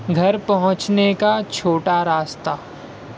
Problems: none marked